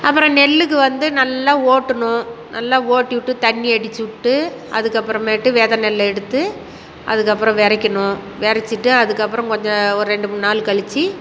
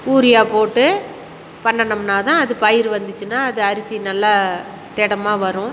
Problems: constant background noise